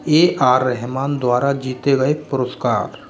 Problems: constant background noise